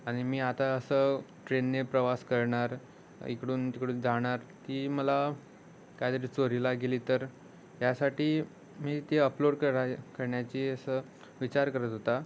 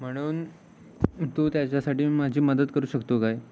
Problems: constant background noise